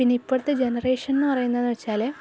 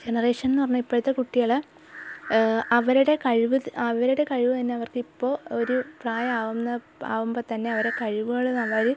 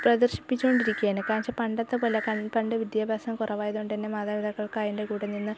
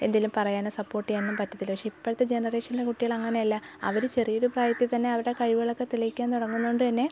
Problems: background sounds at intervals